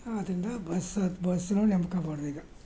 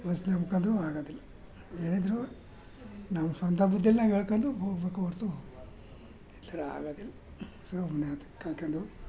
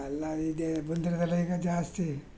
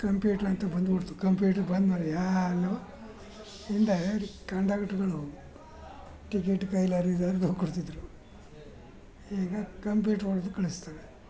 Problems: none marked